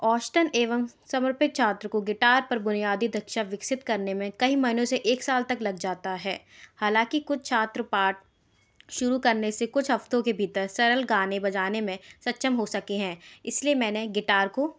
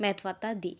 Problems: none marked